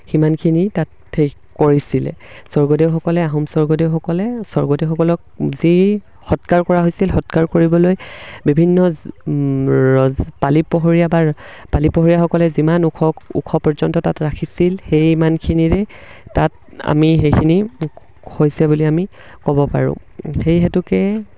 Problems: background sounds at intervals